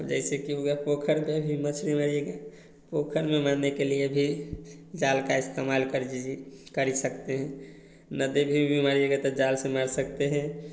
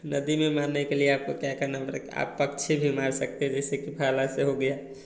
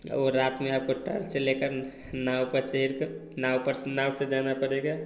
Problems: none marked